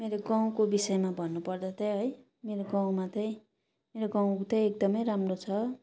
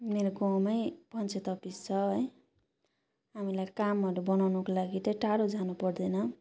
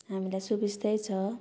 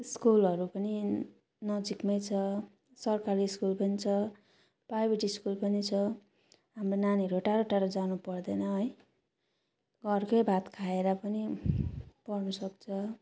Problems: none marked